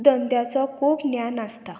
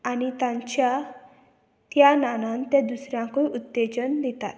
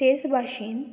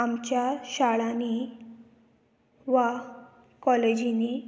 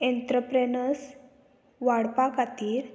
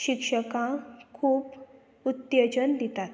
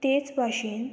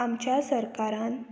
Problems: none marked